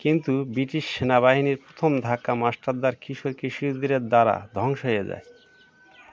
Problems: none marked